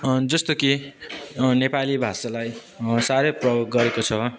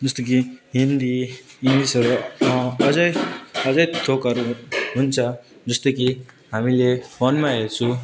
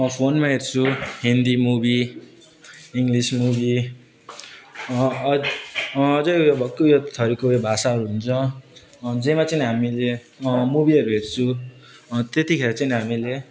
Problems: constant background noise